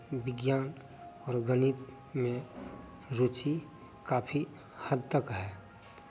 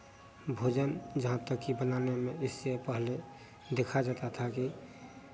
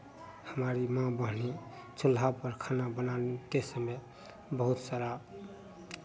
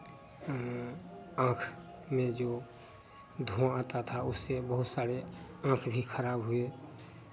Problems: constant background noise